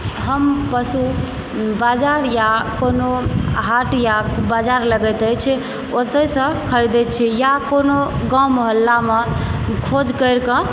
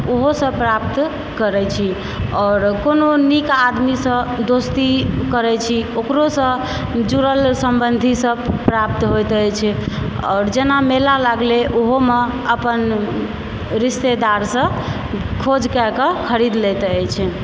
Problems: constant background noise